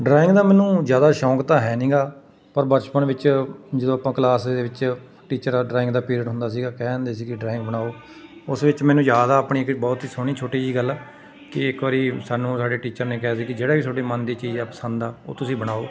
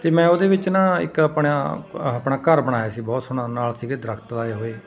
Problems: background sounds at intervals, continuous background conversations